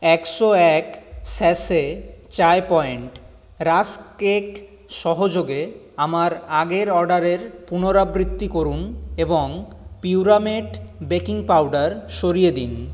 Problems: constant background noise